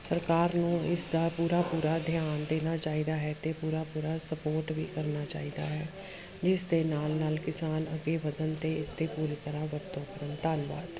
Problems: none marked